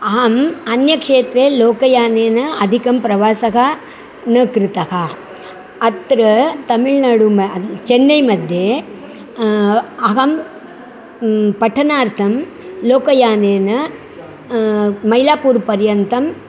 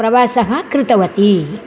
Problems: none marked